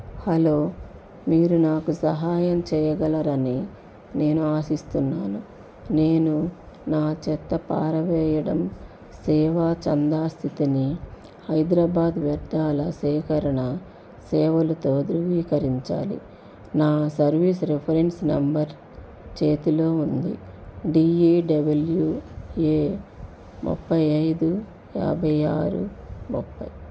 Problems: constant background noise